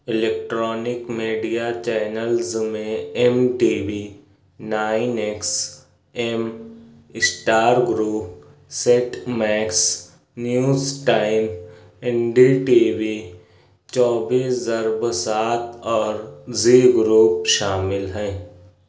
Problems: none marked